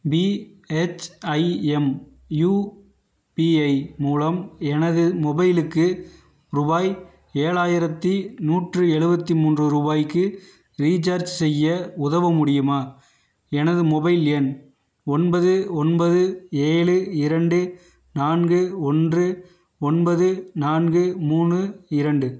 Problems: none marked